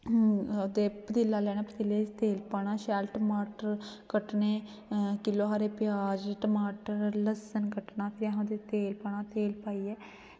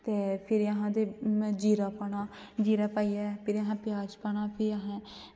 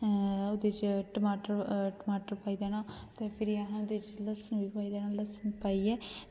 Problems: background sounds at intervals, echo